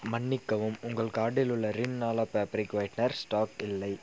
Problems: constant background noise